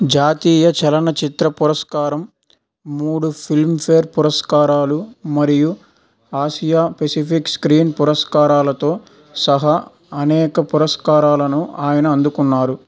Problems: none marked